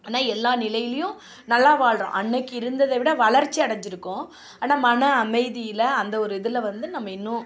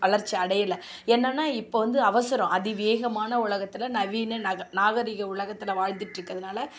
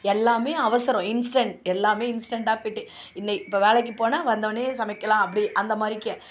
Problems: none marked